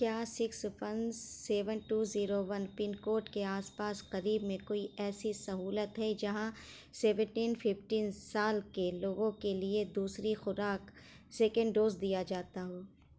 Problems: background sounds at intervals, low volume